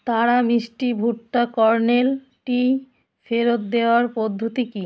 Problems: background sounds at intervals